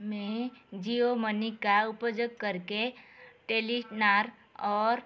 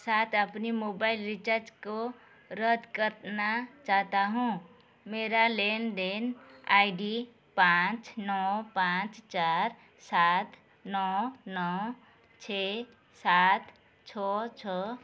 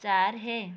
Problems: none marked